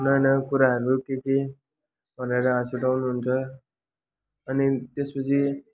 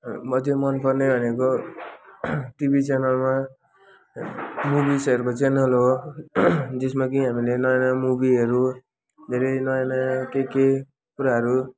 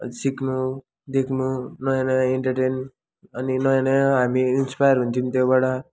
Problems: constant background noise, continuous background conversations